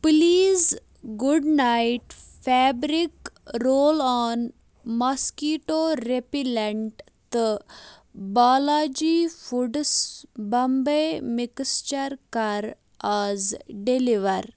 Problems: none marked